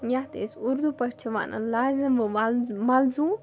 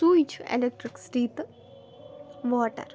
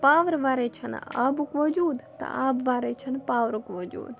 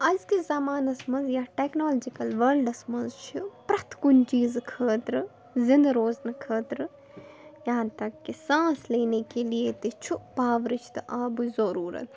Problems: background sounds at intervals, background conversations at intervals